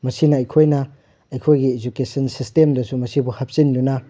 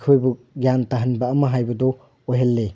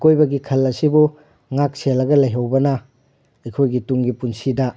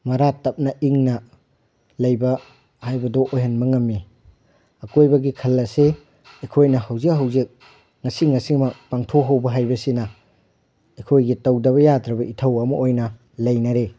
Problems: none marked